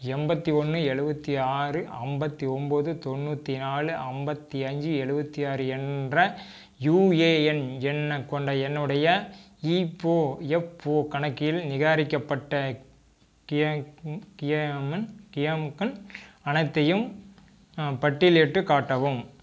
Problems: constant background noise